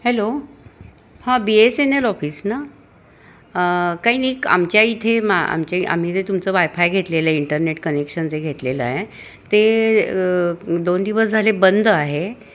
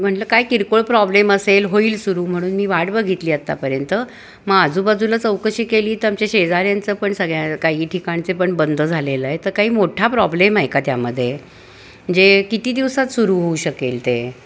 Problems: constant background noise, background conversations at intervals